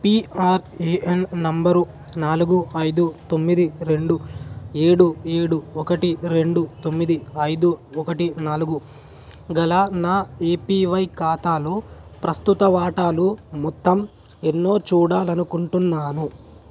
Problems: constant background noise